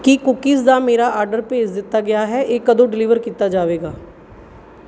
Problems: background sounds at intervals